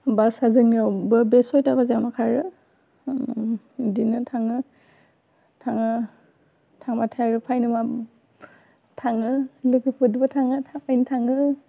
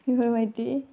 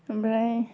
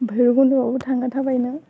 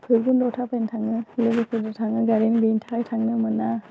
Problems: constant background noise